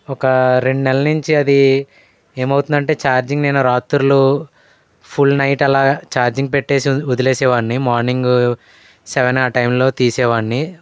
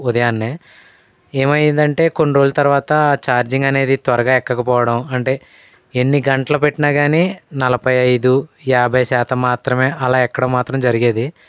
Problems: none marked